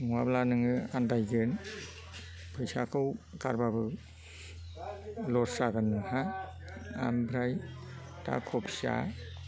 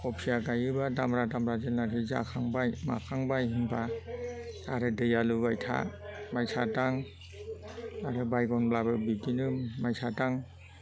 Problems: low volume